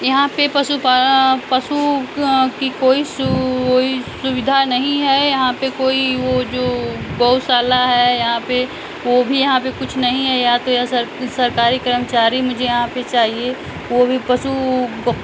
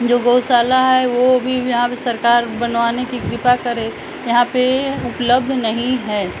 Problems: background sounds at intervals, background conversations at intervals